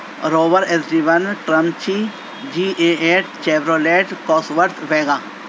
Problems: constant background noise